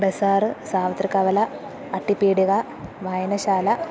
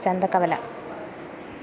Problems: constant background noise, low volume